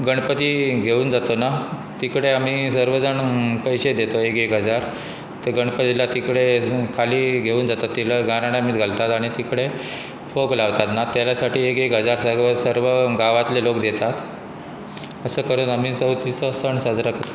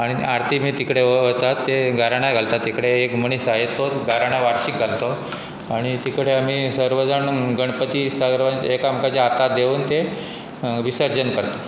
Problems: constant background noise